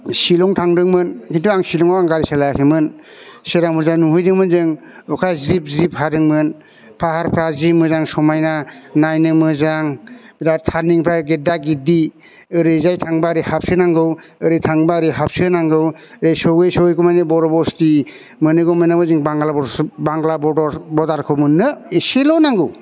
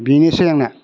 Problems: constant background noise